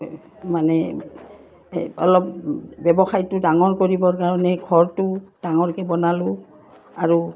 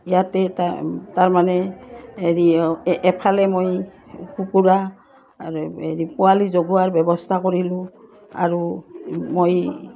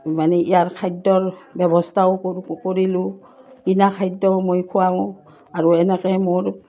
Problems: none marked